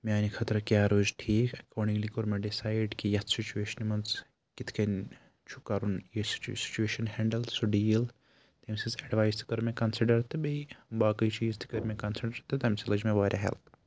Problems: background sounds at intervals